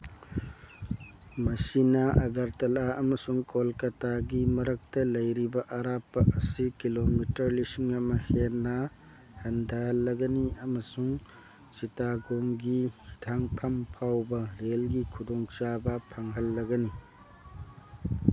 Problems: background sounds at intervals